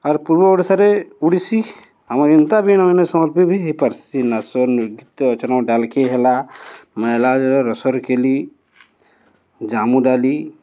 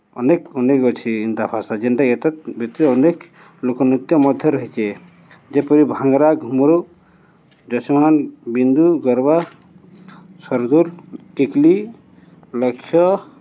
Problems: none marked